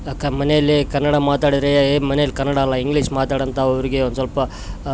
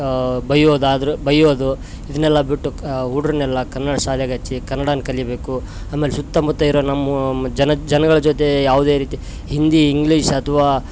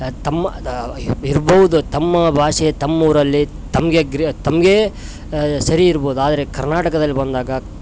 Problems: background sounds at intervals